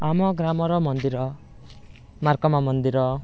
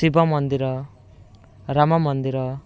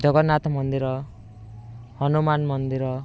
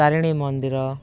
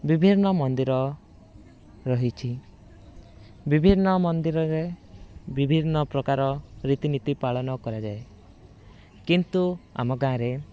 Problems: none marked